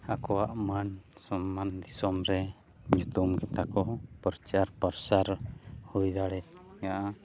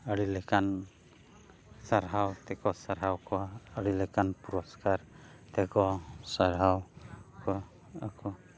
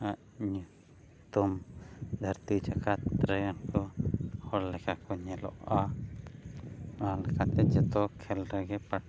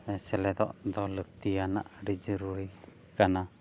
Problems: background sounds at intervals, background conversations at intervals